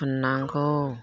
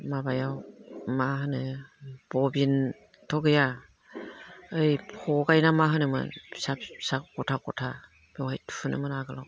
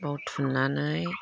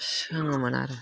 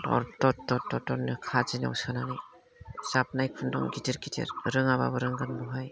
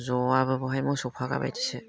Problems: low volume